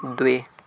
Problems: none marked